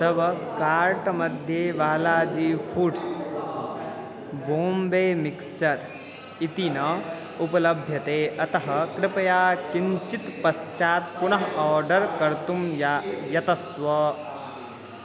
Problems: constant background noise